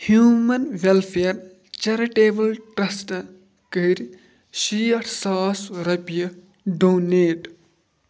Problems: background sounds at intervals